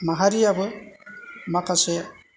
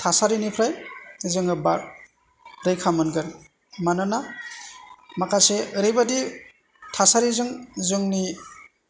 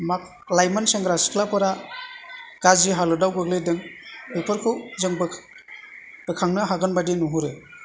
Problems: low volume